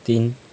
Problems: none marked